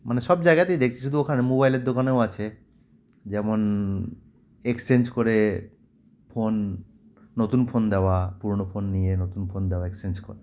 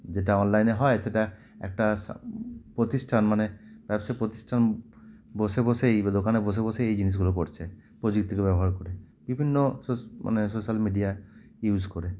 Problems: constant background noise